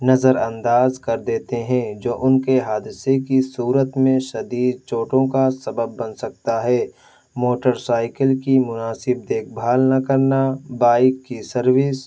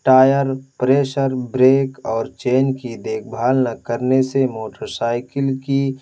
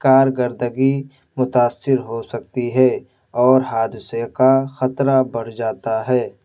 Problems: none marked